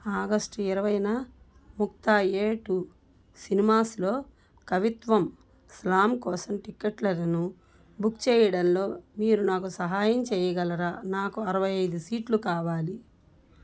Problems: none marked